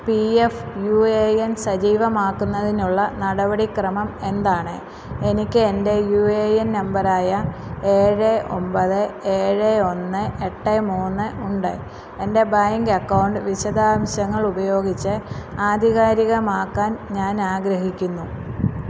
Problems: constant background noise, low volume